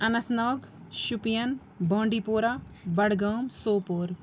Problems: none marked